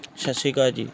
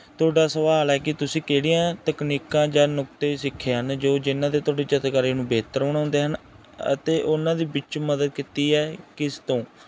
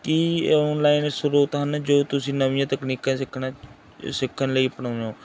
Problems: background sounds at intervals